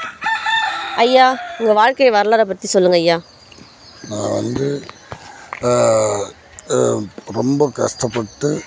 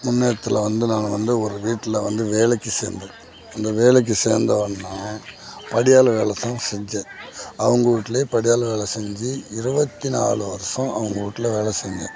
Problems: constant background noise